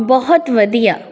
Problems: continuous background conversations